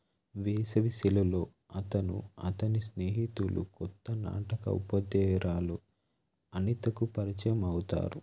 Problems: none marked